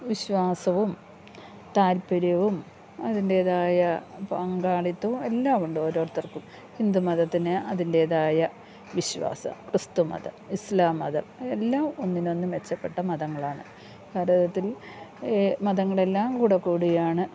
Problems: low volume